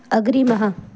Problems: background sounds at intervals